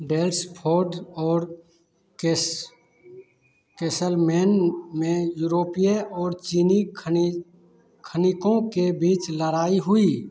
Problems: constant background noise